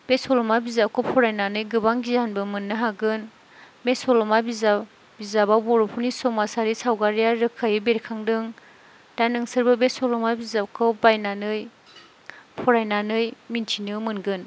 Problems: none marked